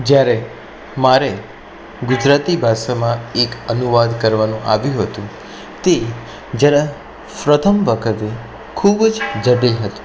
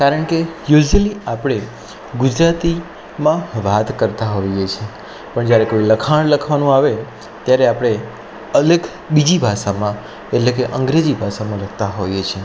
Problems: none marked